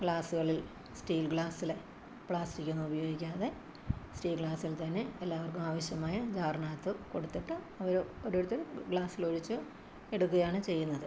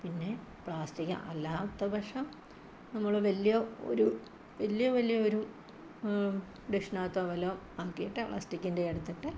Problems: constant background noise, low volume